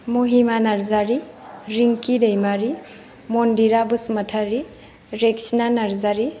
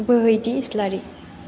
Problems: none marked